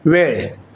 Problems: none marked